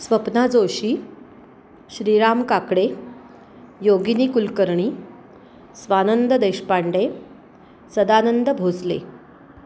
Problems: constant background noise